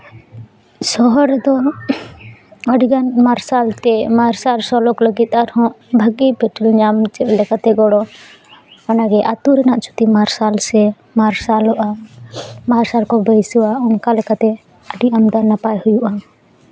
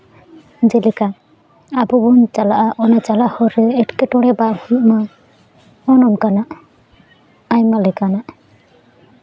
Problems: background sounds at intervals, background conversations at intervals